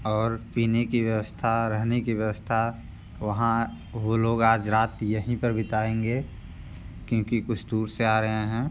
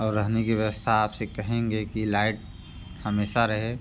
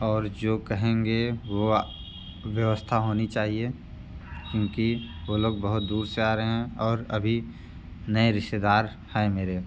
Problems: constant background noise, background conversations at intervals